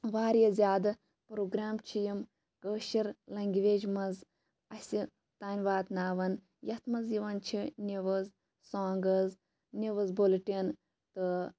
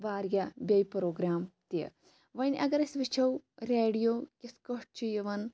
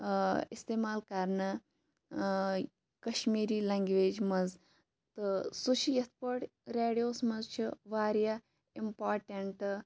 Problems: background sounds at intervals